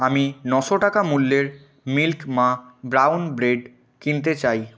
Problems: background sounds at intervals